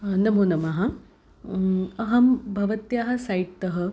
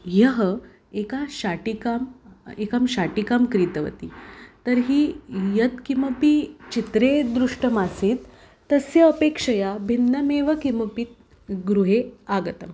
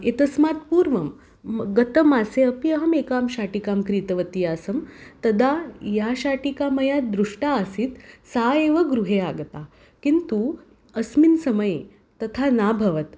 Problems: none marked